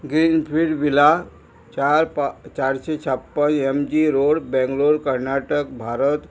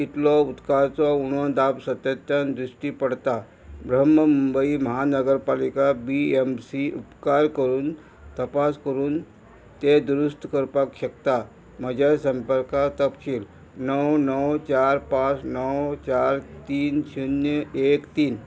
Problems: constant background noise